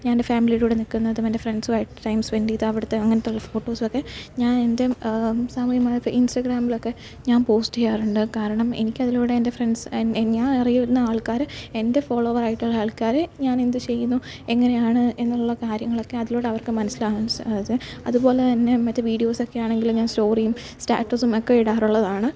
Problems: none marked